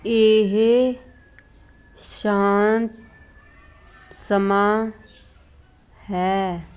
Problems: none marked